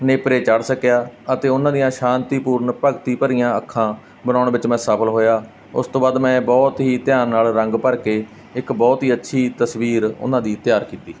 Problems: none marked